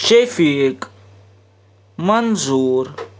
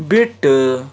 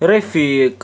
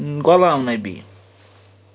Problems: background sounds at intervals